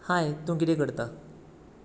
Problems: background sounds at intervals